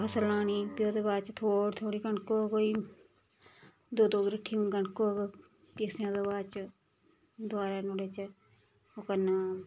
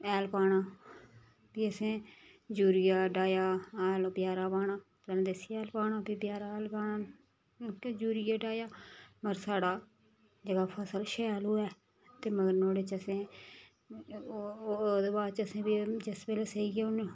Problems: background sounds at intervals